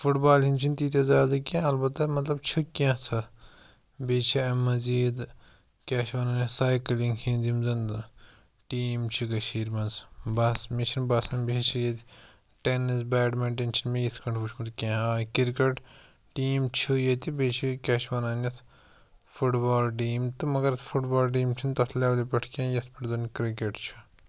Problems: none marked